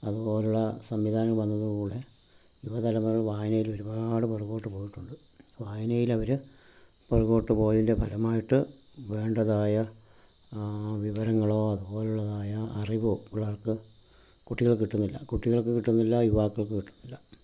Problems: low volume